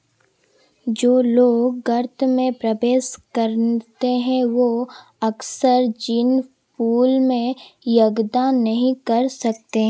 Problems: constant background noise